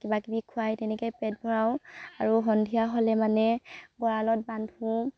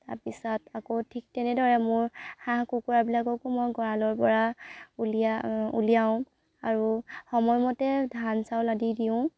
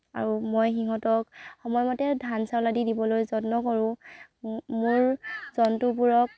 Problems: background sounds at intervals